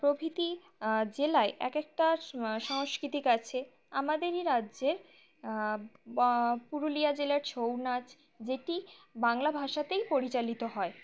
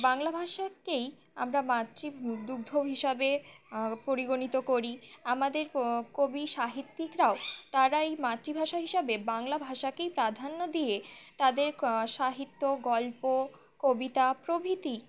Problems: none marked